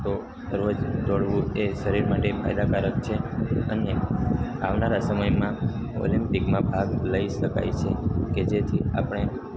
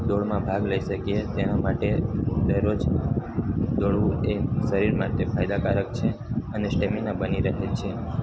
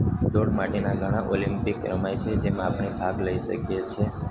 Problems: constant background noise